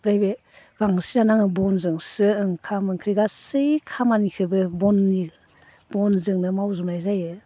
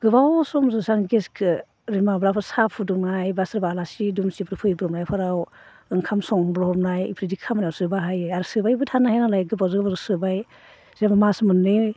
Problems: constant background noise